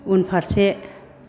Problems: constant background noise